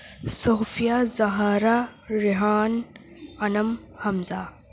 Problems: constant background noise